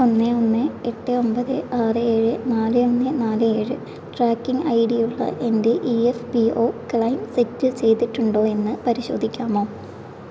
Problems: constant background noise, low volume